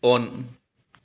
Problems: none marked